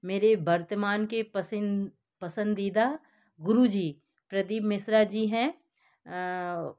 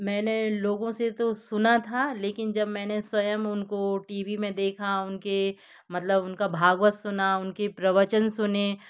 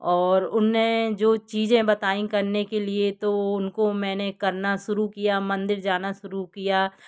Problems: none marked